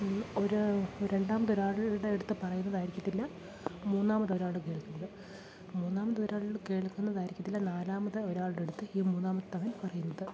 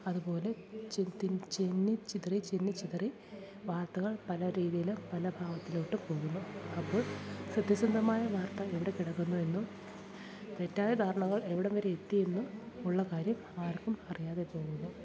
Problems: constant background noise, background conversations at intervals, low volume